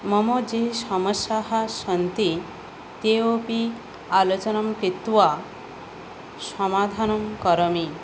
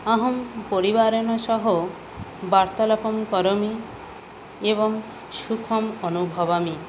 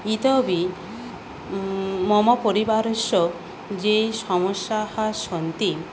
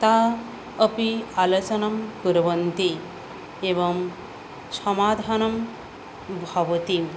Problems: none marked